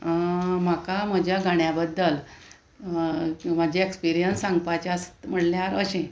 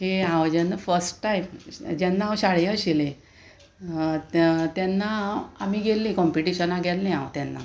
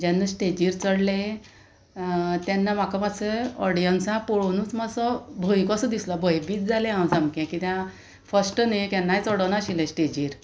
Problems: constant background noise